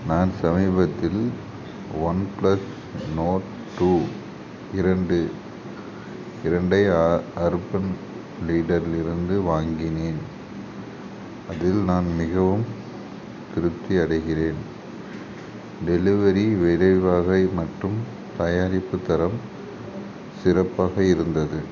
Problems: constant background noise